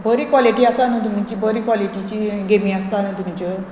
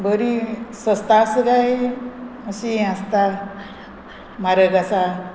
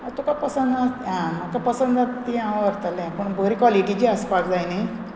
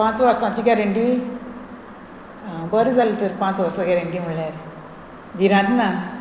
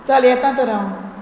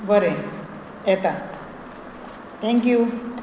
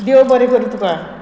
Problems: constant background noise